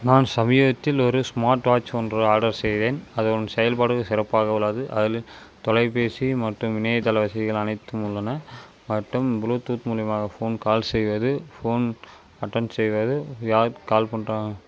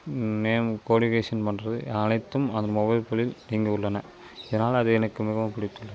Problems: constant background noise